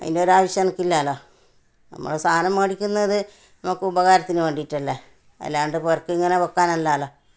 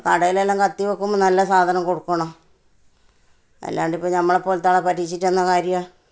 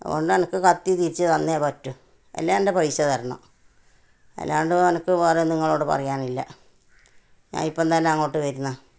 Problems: none marked